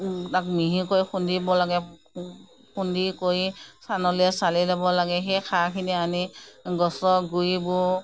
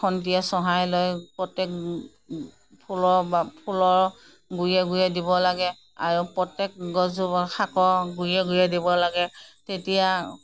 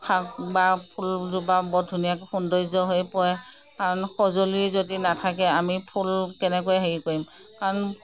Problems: none marked